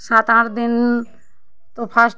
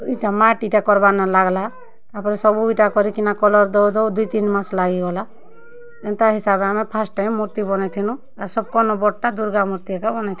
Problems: constant background noise